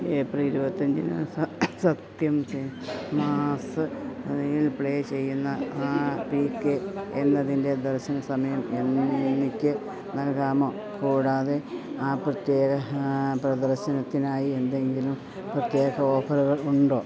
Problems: constant background noise